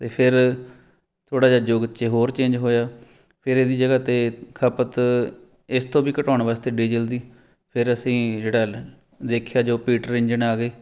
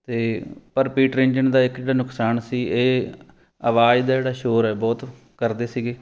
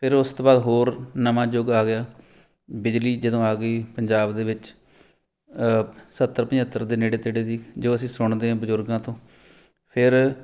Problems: none marked